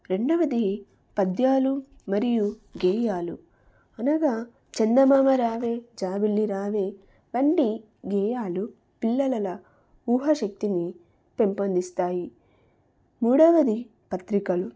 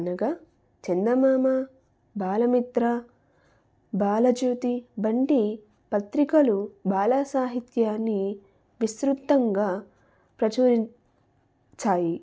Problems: none marked